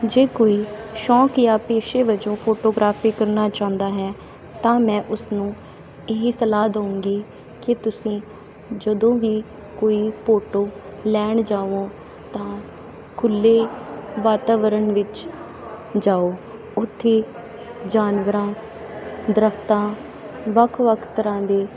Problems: none marked